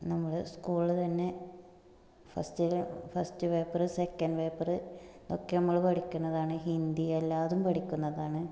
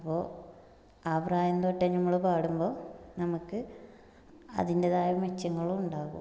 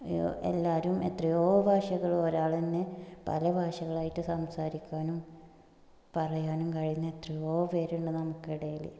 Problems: low volume